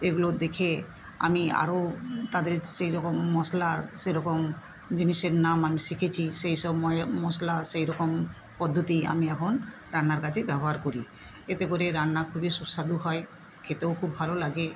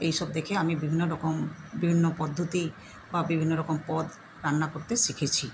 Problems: constant background noise